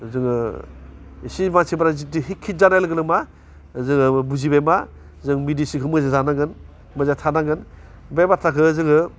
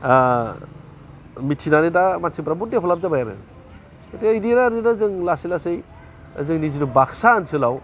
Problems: constant background noise